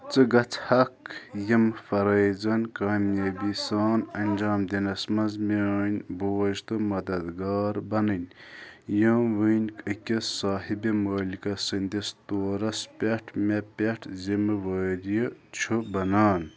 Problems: background conversations at intervals